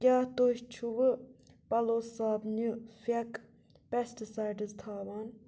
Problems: constant background noise